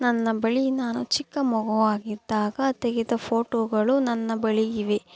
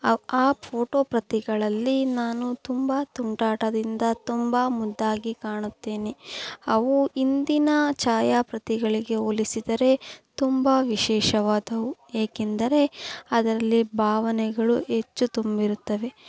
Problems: background sounds at intervals